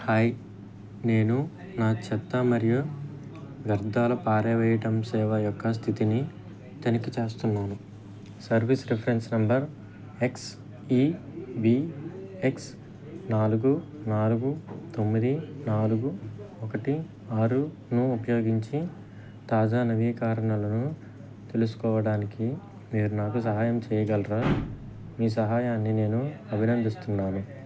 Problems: background sounds at intervals, background conversations at intervals